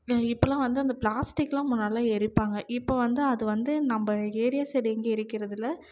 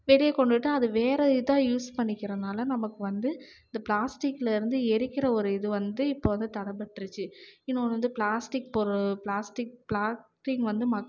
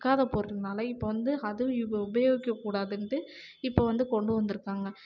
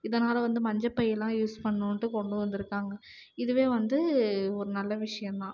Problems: low volume